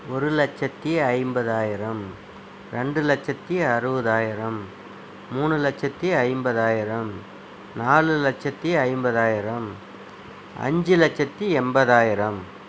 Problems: none marked